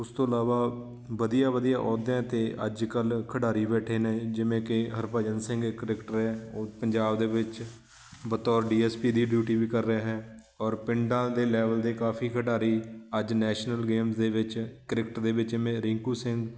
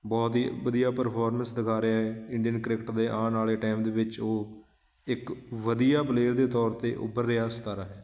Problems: constant background noise